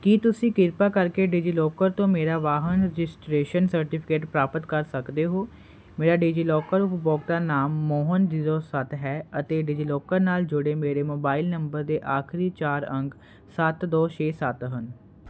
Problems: constant background noise